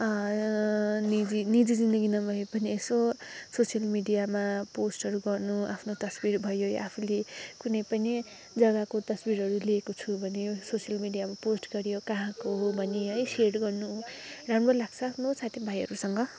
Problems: none marked